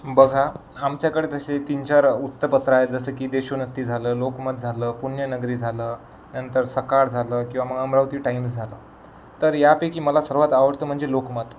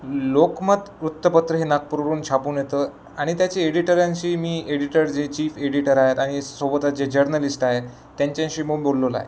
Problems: none marked